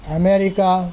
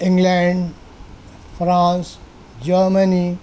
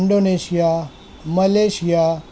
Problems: background sounds at intervals